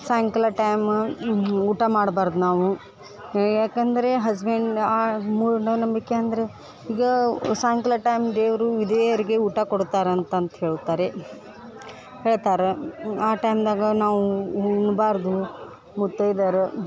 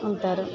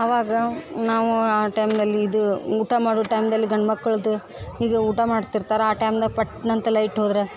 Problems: background conversations at intervals